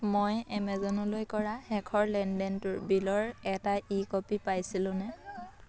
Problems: continuous background conversations